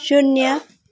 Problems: background sounds at intervals